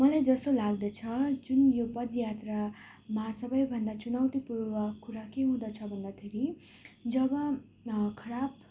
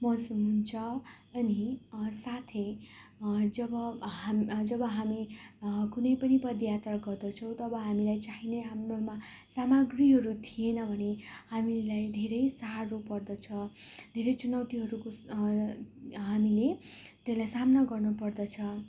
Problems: background sounds at intervals